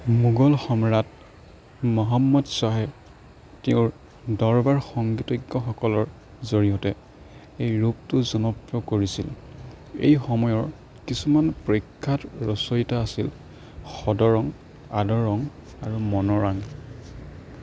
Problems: background sounds at intervals